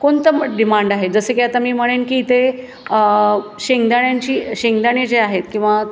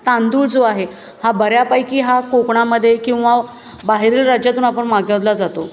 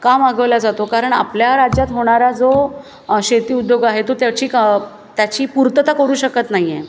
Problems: constant background noise